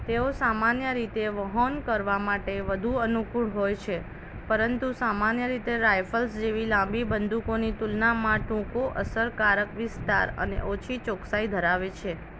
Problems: none marked